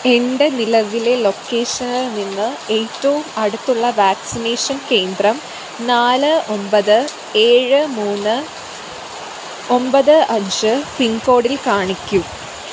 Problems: constant background noise